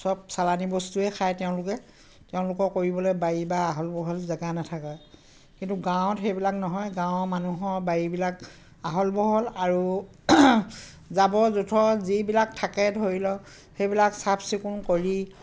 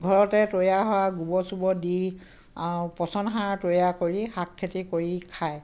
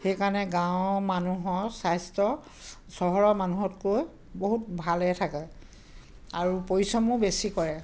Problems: constant background noise, background conversations at intervals